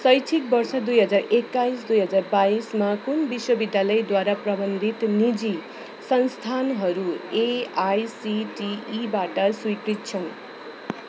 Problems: continuous background conversations